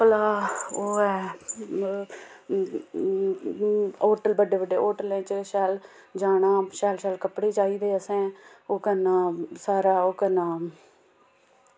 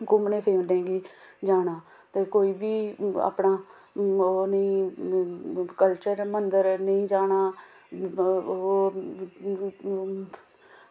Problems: background sounds at intervals